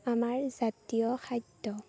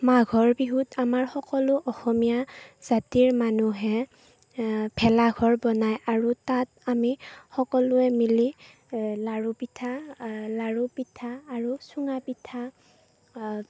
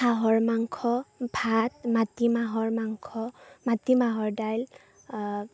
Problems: background sounds at intervals, low volume